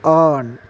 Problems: constant background noise, low volume